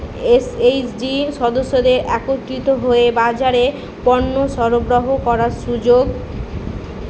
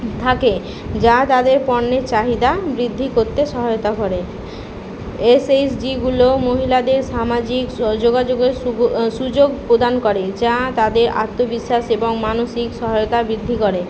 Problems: none marked